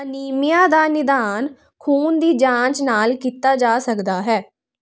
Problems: constant background noise